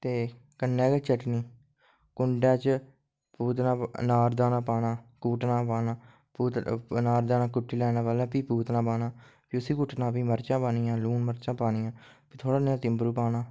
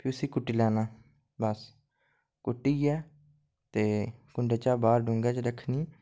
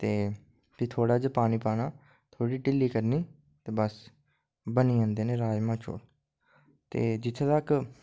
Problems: low volume